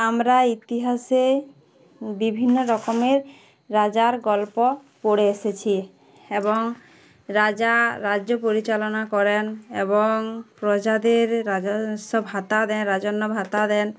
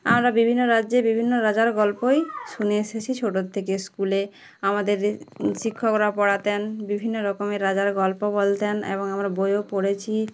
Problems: background sounds at intervals